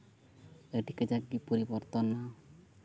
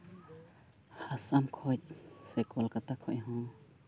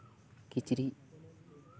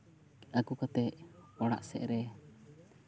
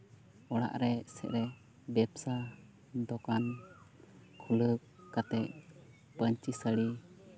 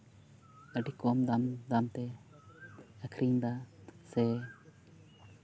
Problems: constant background noise, background conversations at intervals